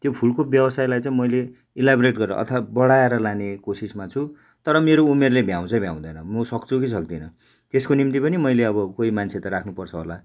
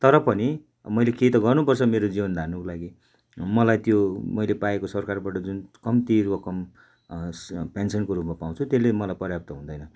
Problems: none marked